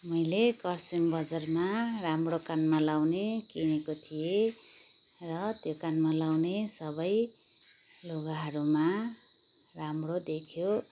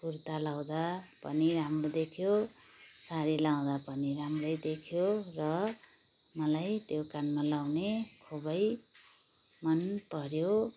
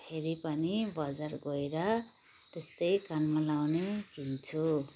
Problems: constant background noise